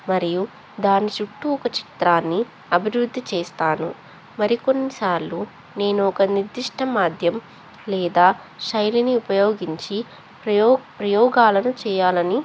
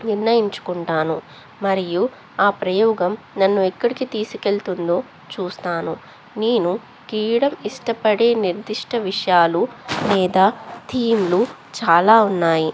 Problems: constant background noise, background conversations at intervals